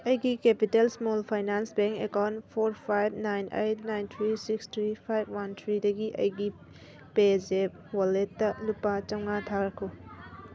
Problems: constant background noise